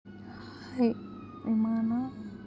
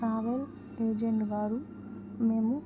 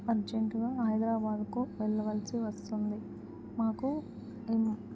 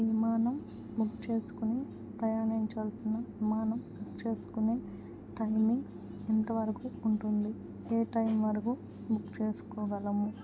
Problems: constant background noise